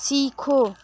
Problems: constant background noise, continuous background conversations